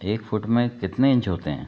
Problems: background sounds at intervals